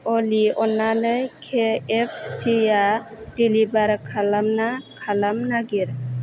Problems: constant background noise